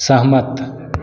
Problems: constant background noise